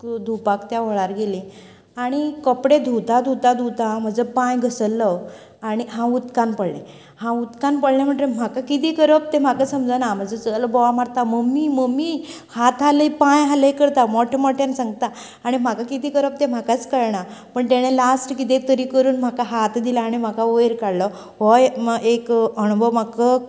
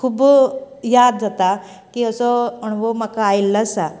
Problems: none marked